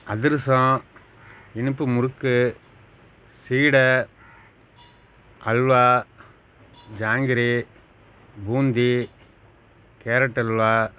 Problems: none marked